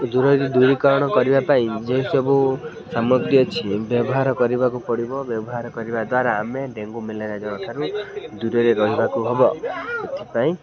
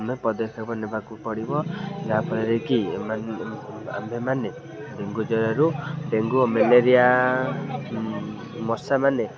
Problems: constant background noise, continuous background conversations